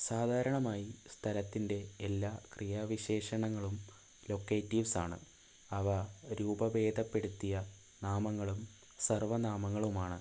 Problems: constant background noise, low volume